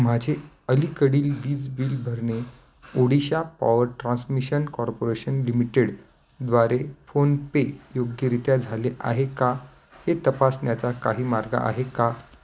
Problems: none marked